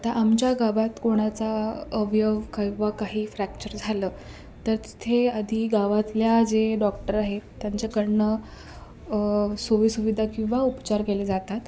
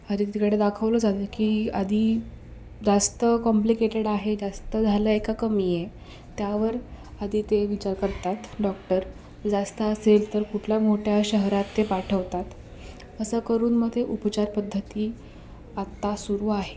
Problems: background sounds at intervals